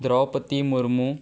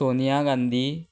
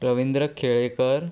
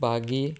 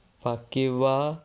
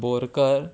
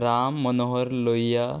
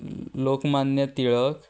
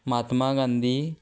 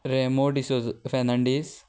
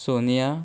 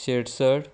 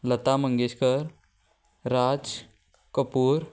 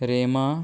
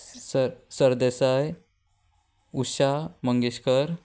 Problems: background conversations at intervals